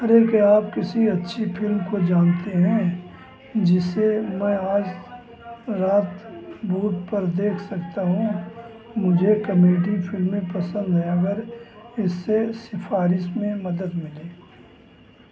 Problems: constant background noise, background conversations at intervals